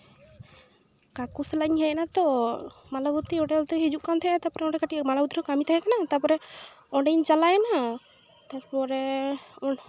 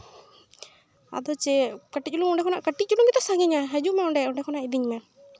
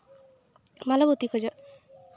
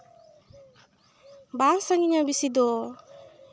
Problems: constant background noise, background conversations at intervals